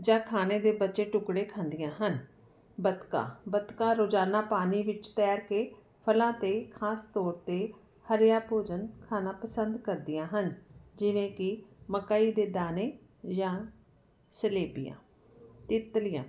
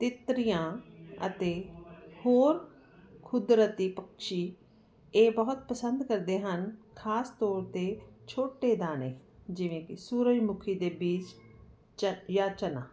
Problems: none marked